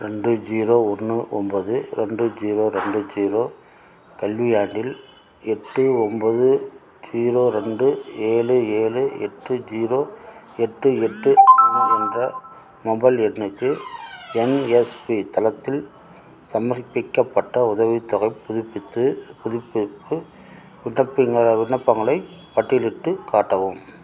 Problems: background conversations at intervals